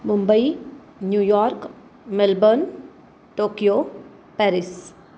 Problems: background sounds at intervals